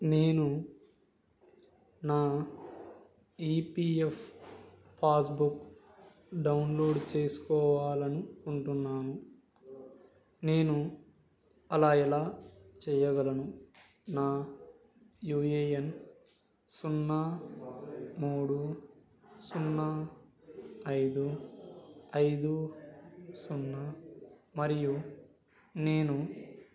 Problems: background conversations at intervals